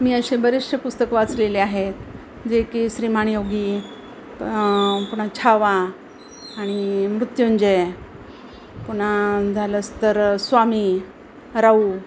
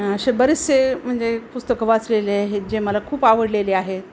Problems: constant background noise, background conversations at intervals